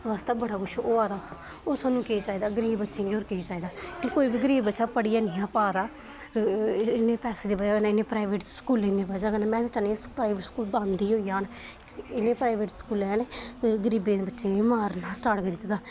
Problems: constant background noise